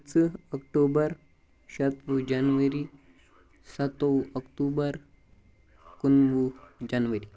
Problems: background sounds at intervals